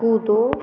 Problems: constant background noise